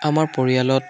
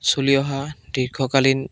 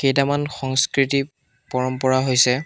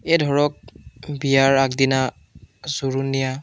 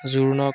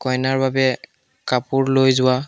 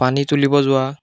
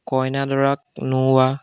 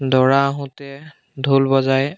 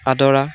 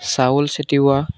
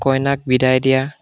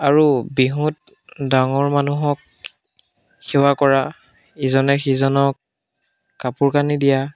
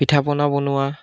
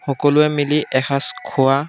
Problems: background sounds at intervals, background conversations at intervals